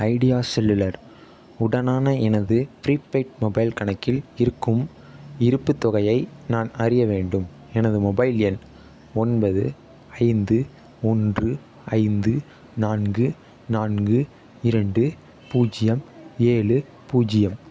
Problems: none marked